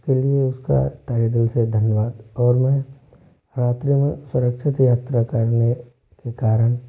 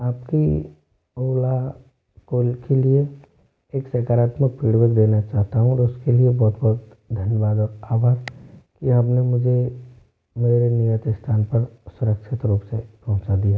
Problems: low volume